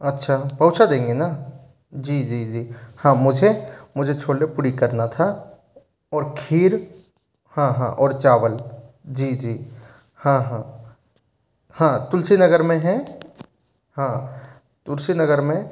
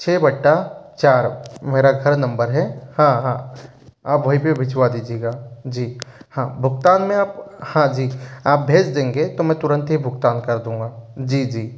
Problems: background sounds at intervals